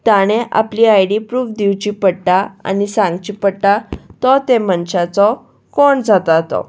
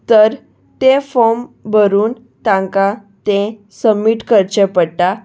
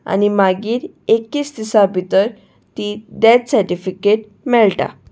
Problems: none marked